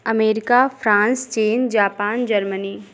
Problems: none marked